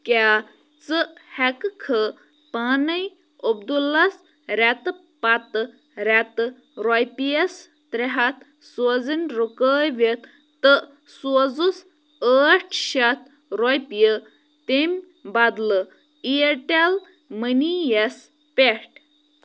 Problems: none marked